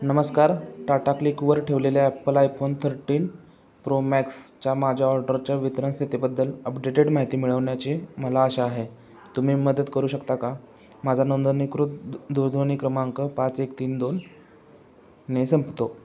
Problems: none marked